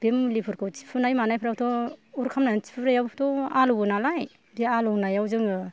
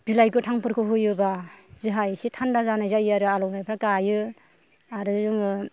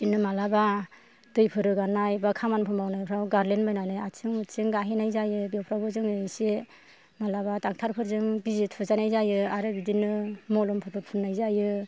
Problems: none marked